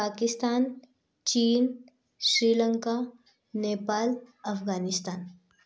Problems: background conversations at intervals